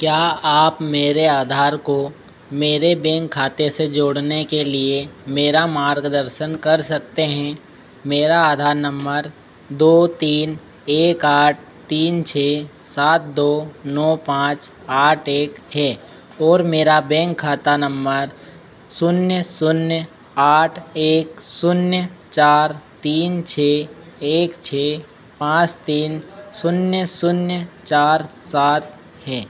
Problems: constant background noise